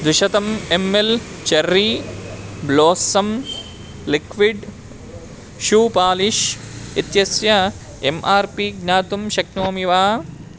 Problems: constant background noise